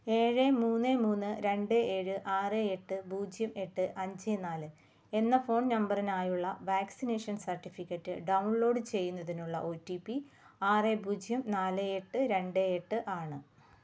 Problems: none marked